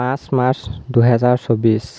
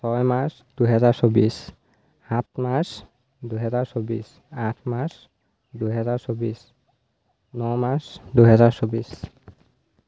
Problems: constant background noise